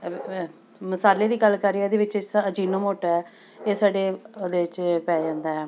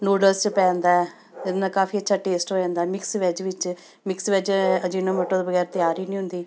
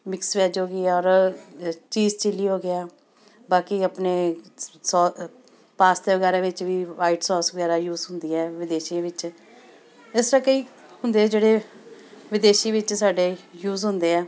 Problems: constant background noise, continuous background conversations